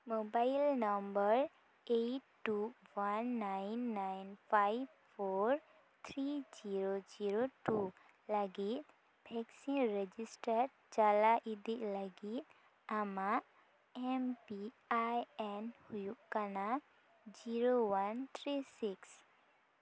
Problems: none marked